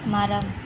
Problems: none marked